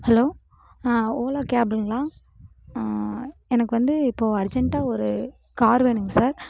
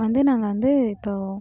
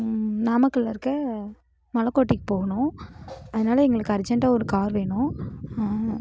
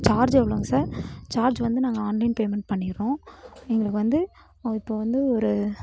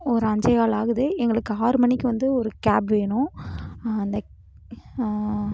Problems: constant background noise